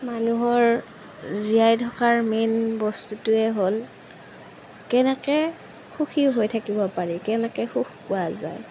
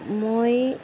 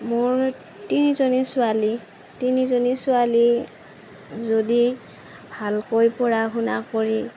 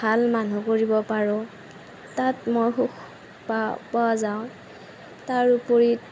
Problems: constant background noise